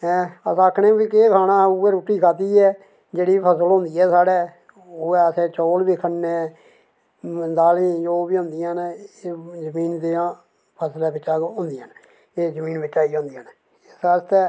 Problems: none marked